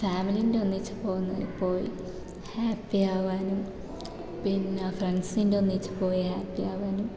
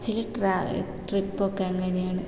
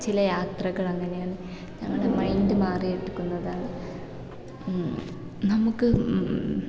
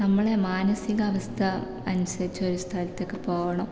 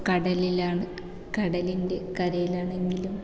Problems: low volume